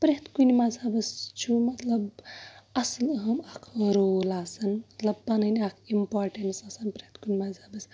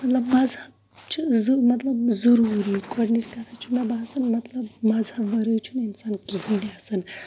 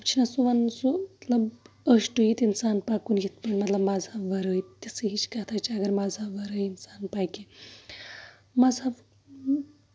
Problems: constant background noise